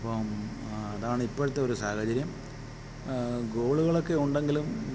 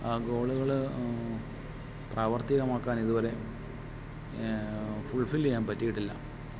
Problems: background sounds at intervals